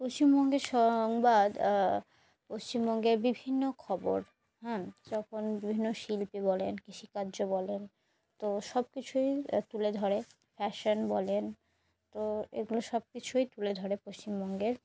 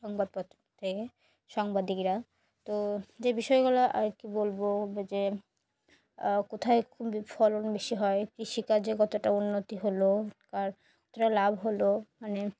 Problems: background sounds at intervals